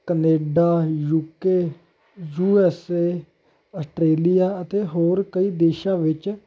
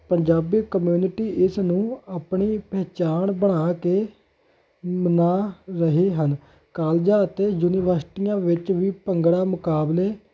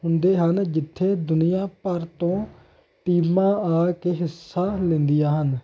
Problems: none marked